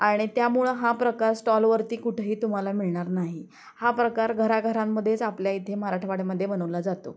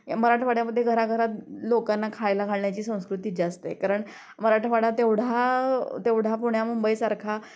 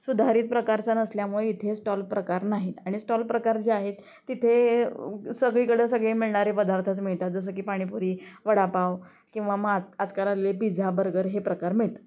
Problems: constant background noise